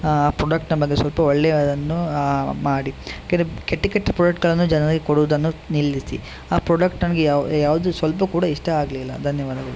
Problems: constant background noise